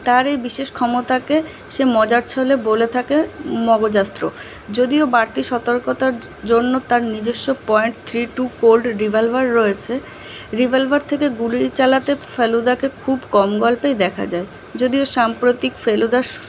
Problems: constant background noise